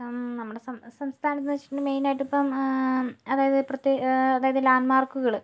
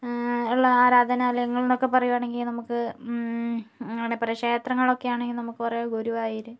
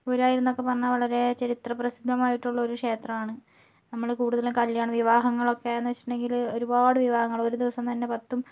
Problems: low volume